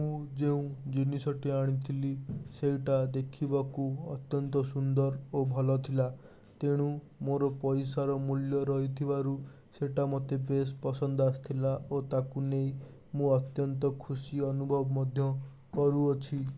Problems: constant background noise